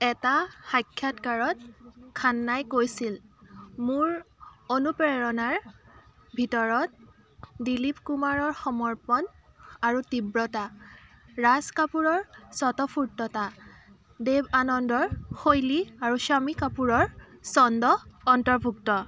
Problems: none marked